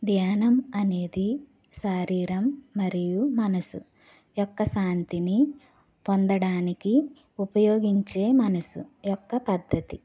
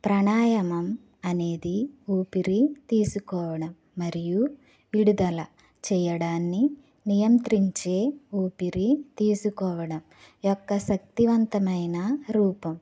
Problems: none marked